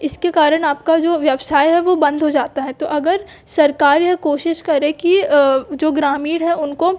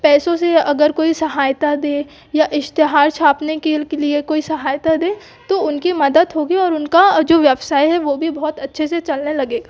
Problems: background sounds at intervals